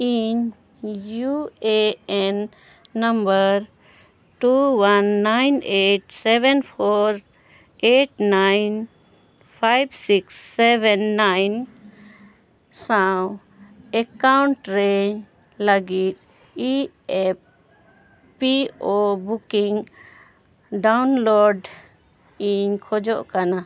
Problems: none marked